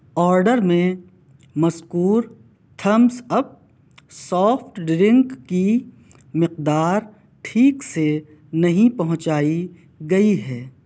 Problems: none marked